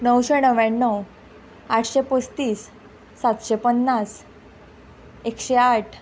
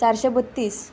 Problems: background sounds at intervals